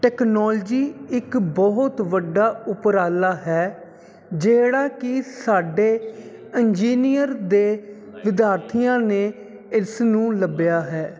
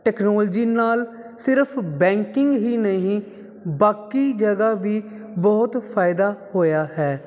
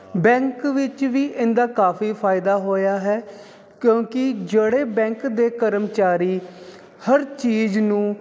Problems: none marked